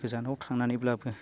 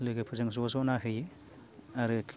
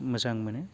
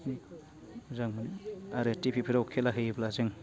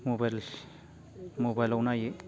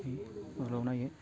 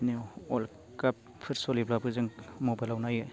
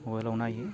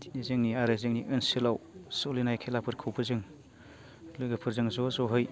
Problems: constant background noise